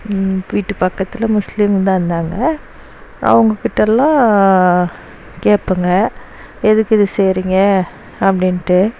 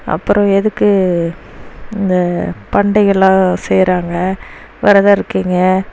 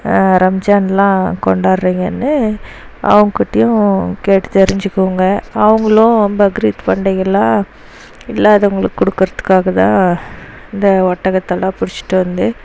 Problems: none marked